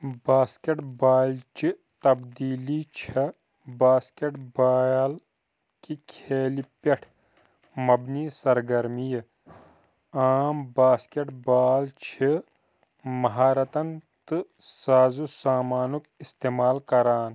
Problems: background sounds at intervals